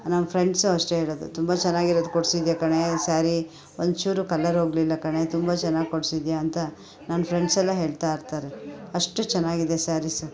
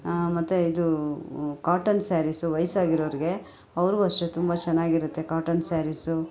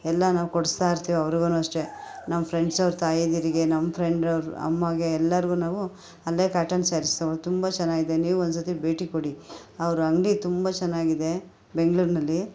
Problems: background sounds at intervals, background conversations at intervals